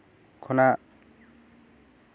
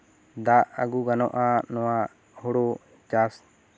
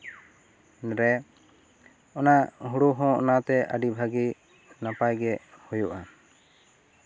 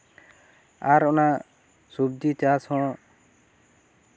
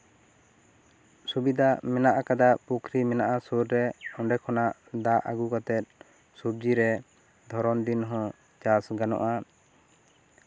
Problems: none marked